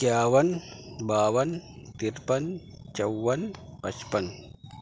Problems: constant background noise